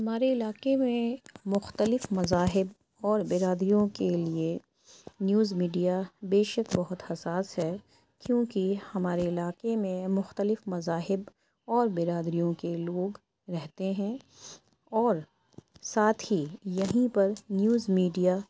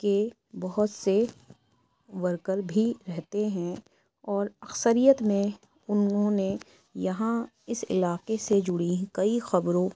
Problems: background sounds at intervals